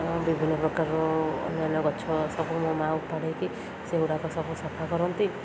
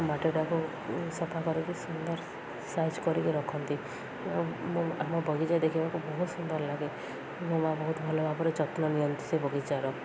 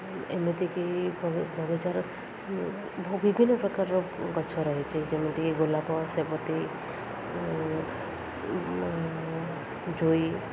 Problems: constant background noise, continuous background conversations